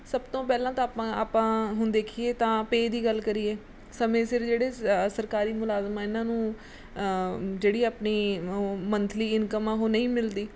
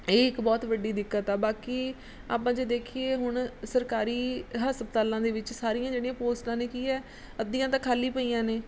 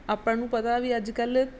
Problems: background sounds at intervals